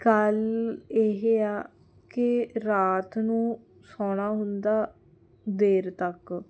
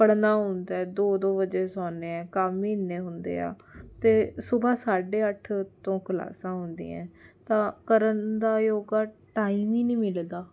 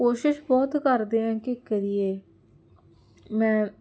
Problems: none marked